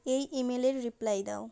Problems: none marked